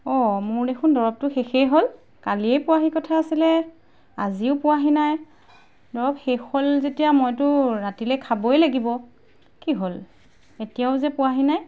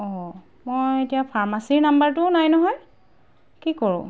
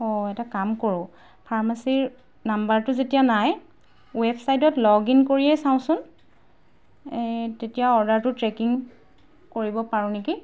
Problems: background sounds at intervals